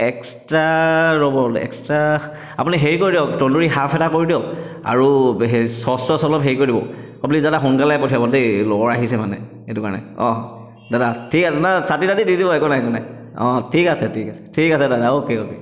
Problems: echo